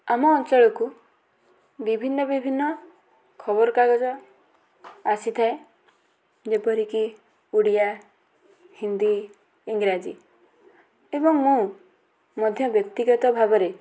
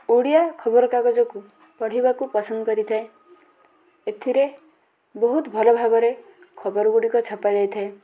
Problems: constant background noise, continuous background conversations